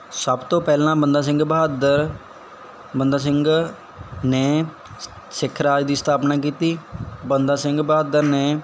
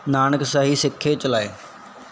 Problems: background sounds at intervals